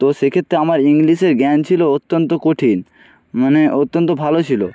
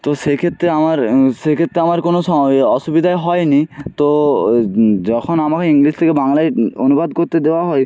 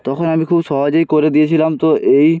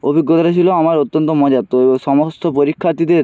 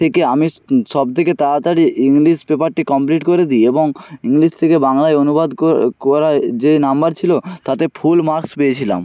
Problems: background sounds at intervals